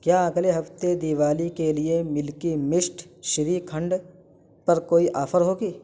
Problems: constant background noise